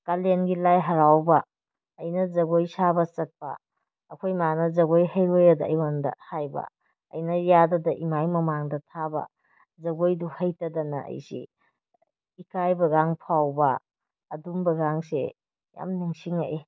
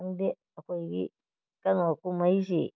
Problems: none marked